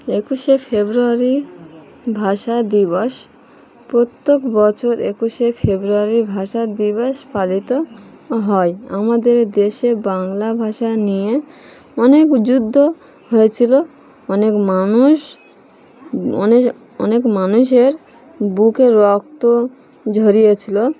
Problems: background sounds at intervals, background conversations at intervals